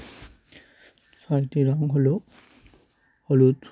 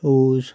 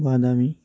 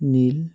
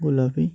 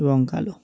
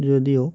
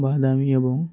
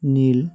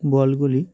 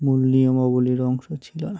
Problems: none marked